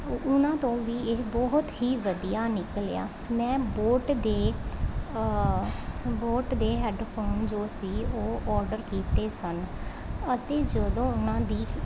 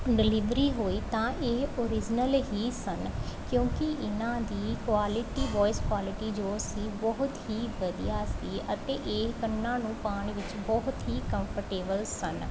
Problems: constant background noise